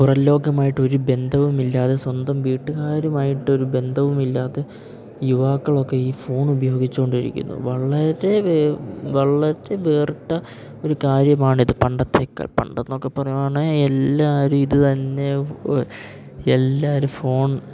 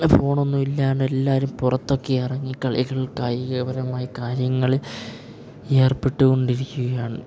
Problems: none marked